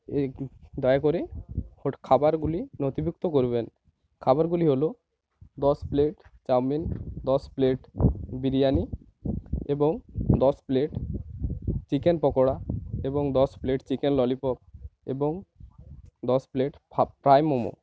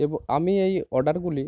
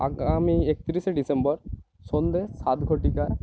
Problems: constant background noise